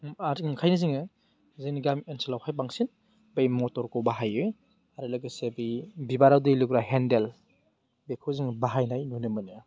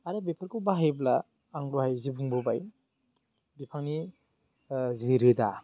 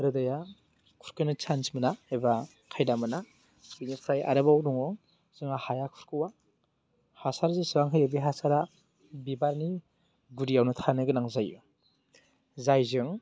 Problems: none marked